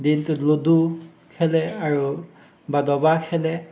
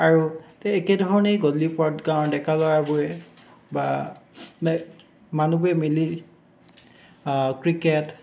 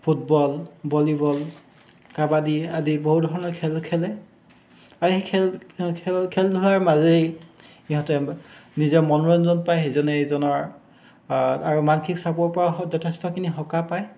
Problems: constant background noise, background conversations at intervals